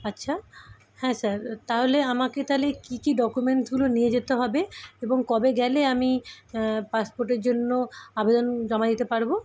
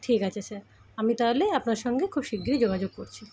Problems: constant background noise